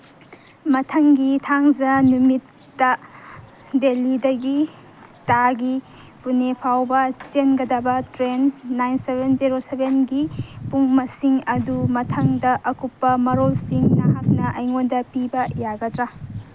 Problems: background sounds at intervals